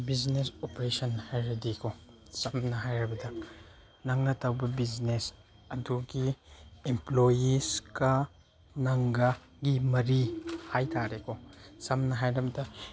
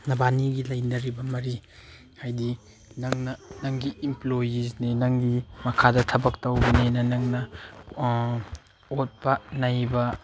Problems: none marked